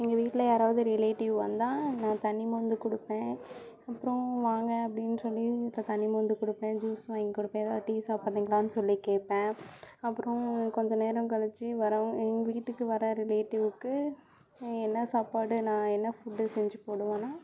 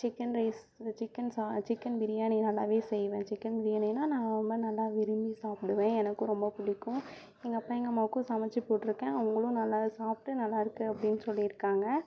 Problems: continuous background conversations